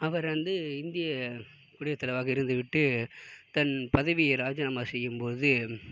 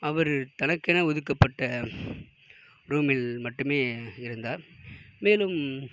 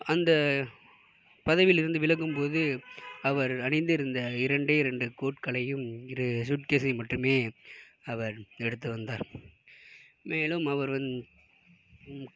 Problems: background sounds at intervals